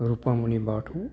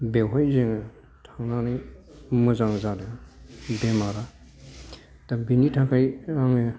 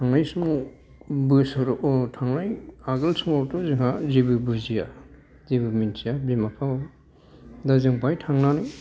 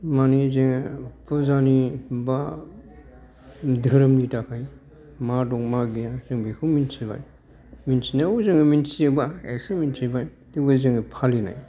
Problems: background conversations at intervals